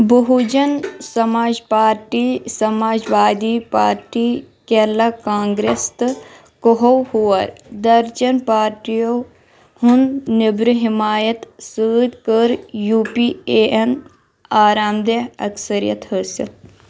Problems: background sounds at intervals